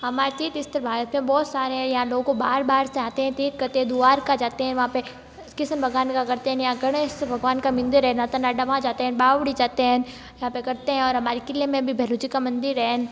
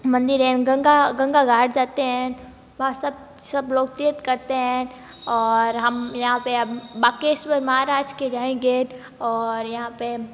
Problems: background sounds at intervals